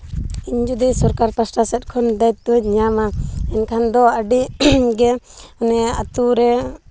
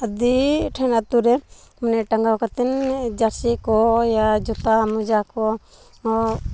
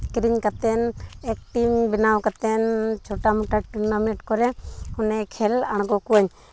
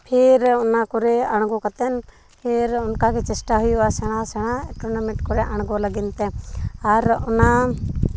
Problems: none marked